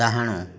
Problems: none marked